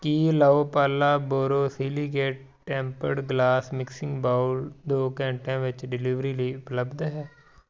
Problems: background conversations at intervals